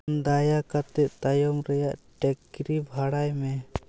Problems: background sounds at intervals